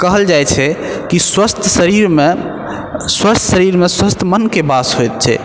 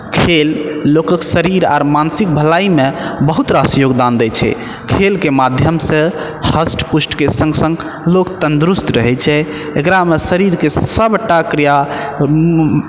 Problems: none marked